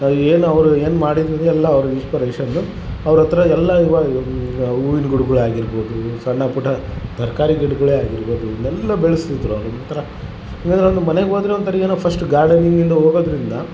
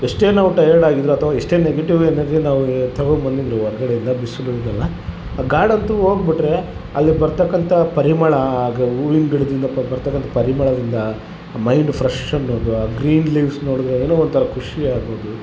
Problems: none marked